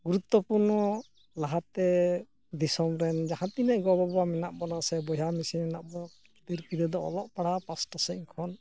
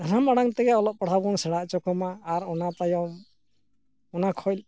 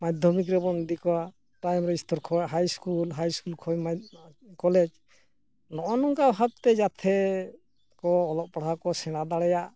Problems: none marked